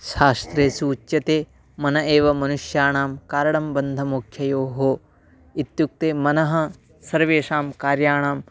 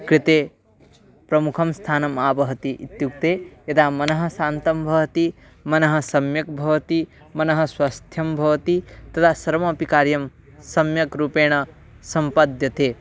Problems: echo